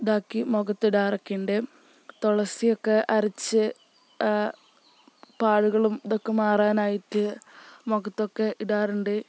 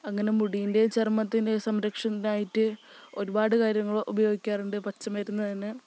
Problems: none marked